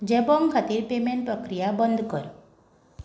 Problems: none marked